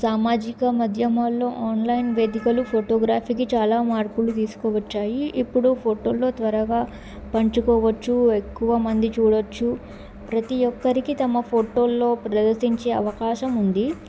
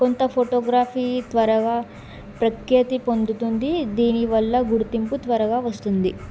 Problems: background sounds at intervals